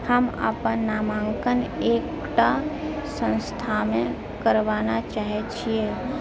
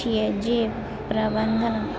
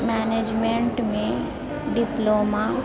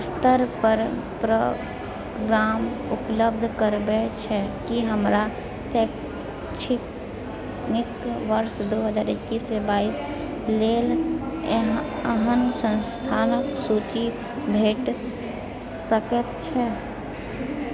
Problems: continuous background conversations